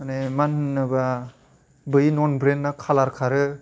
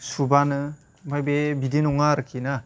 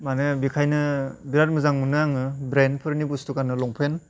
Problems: constant background noise